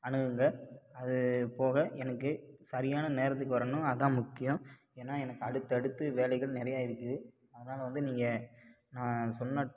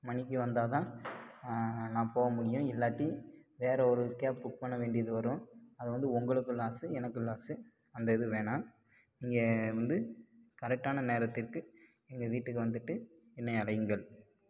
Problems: low volume